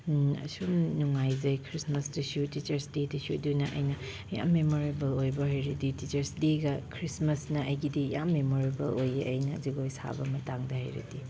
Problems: none marked